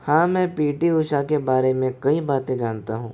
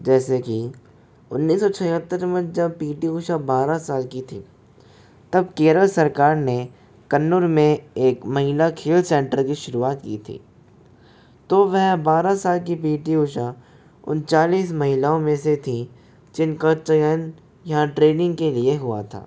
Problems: none marked